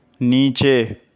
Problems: none marked